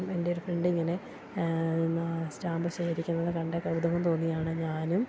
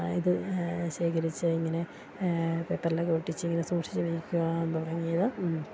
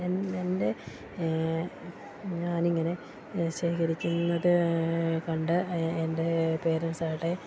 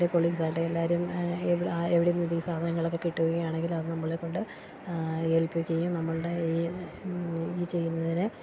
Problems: constant background noise, low volume